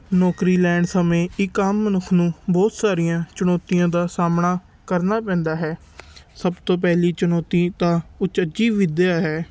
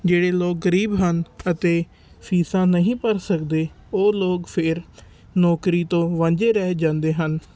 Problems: constant background noise